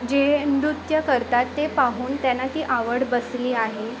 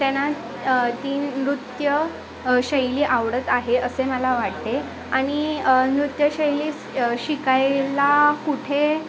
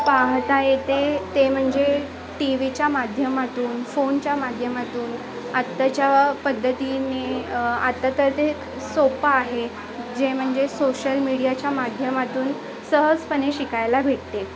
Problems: constant background noise, continuous background conversations